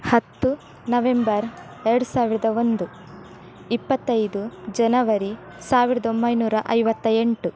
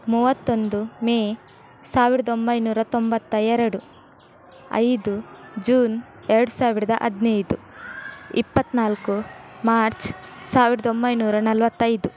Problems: none marked